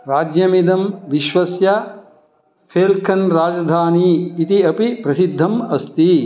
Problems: background conversations at intervals